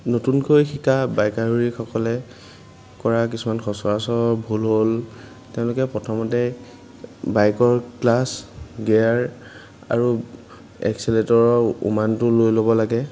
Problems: background sounds at intervals